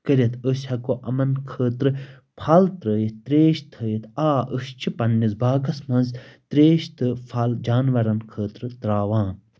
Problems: constant background noise